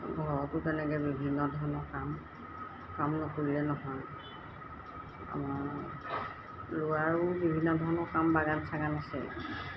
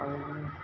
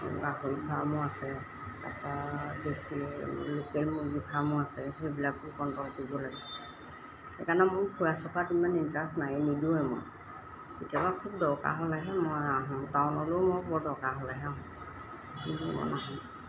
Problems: none marked